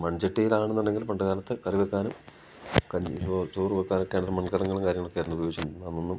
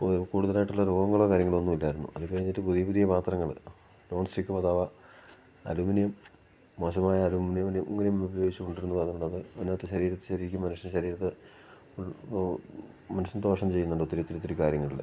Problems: none marked